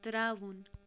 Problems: none marked